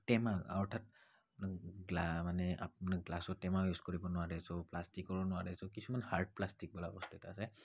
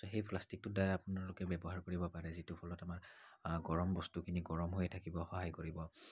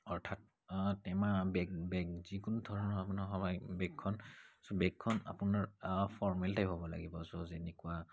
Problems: background sounds at intervals, low volume